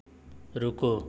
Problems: background sounds at intervals